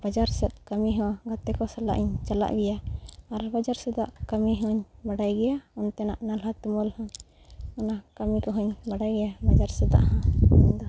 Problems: background sounds at intervals